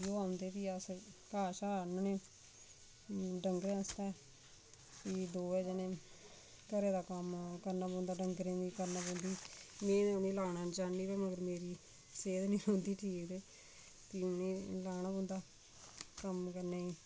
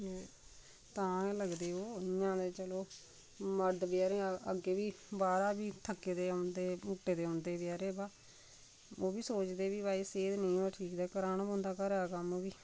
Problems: constant background noise, background conversations at intervals, low volume